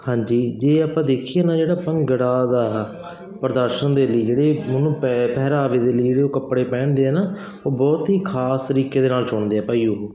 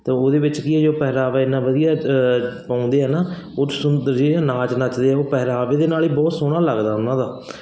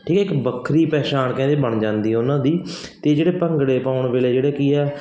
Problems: none marked